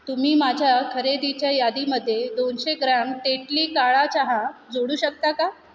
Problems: constant background noise